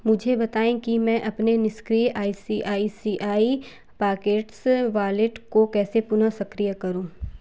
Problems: constant background noise